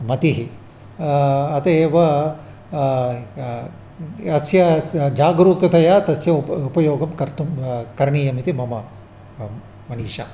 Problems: constant background noise